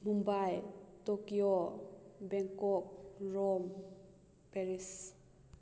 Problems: none marked